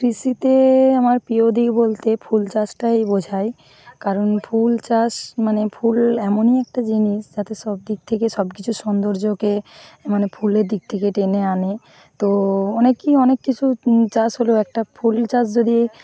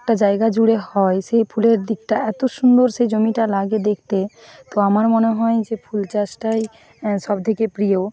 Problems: constant background noise, background conversations at intervals